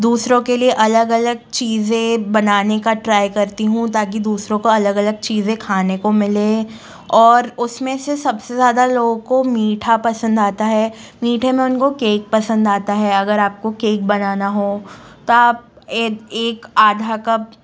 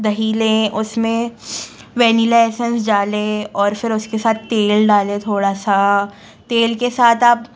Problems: constant background noise